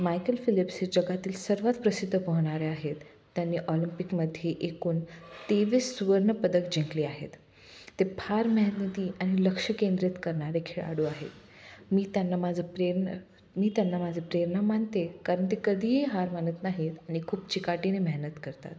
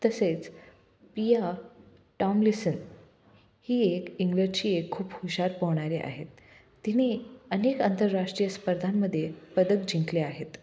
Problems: none marked